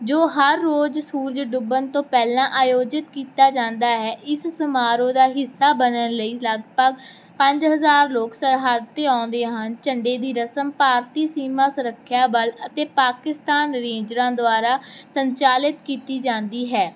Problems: none marked